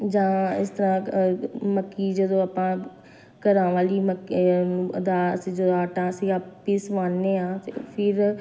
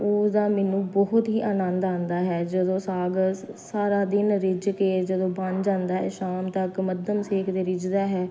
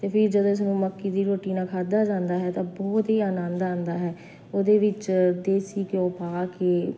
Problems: constant background noise